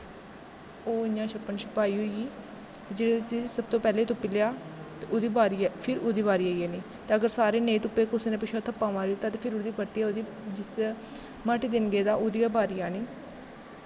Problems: constant background noise, background conversations at intervals, echo